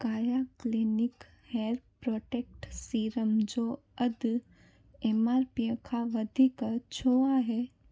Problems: constant background noise